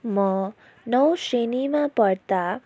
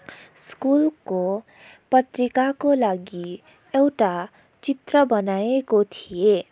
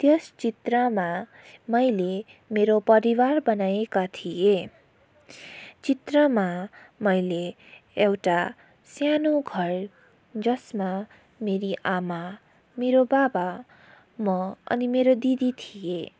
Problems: background sounds at intervals